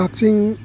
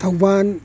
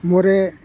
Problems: none marked